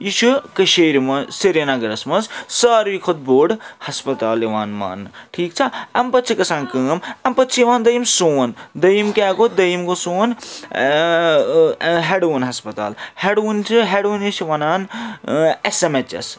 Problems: constant background noise